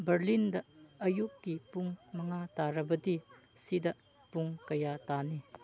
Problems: background conversations at intervals